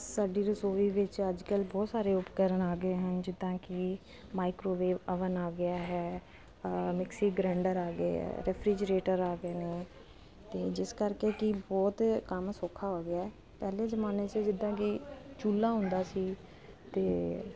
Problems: constant background noise